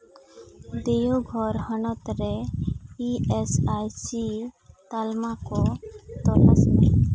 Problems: none marked